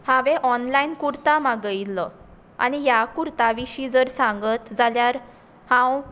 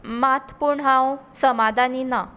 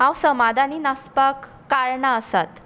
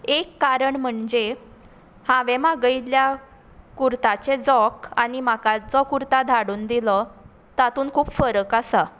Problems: constant background noise